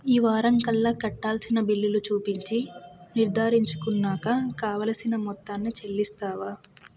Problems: constant background noise